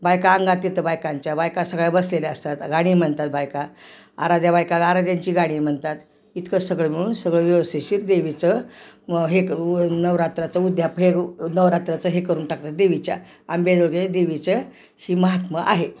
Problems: none marked